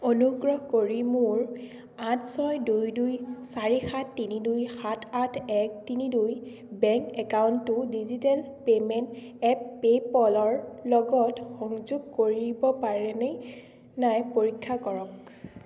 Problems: echo